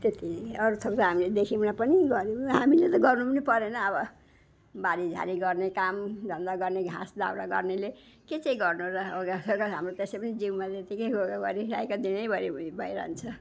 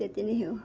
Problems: background sounds at intervals